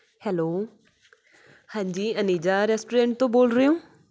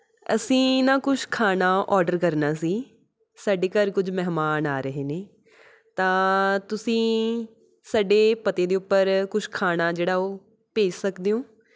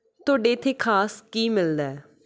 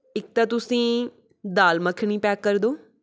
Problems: background sounds at intervals